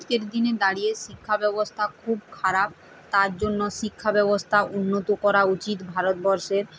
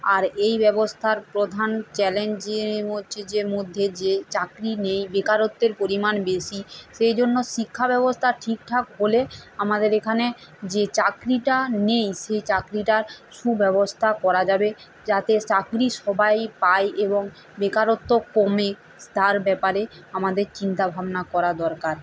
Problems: none marked